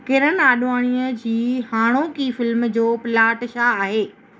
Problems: none marked